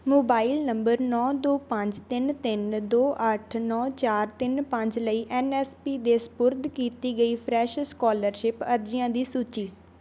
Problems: background sounds at intervals